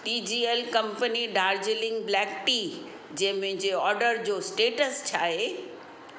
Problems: constant background noise, echo